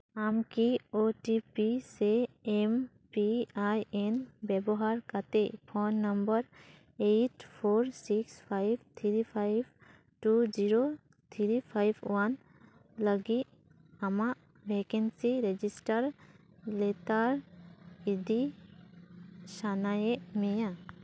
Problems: background sounds at intervals